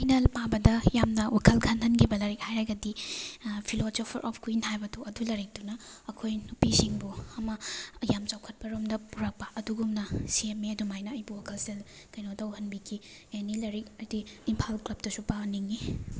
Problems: background sounds at intervals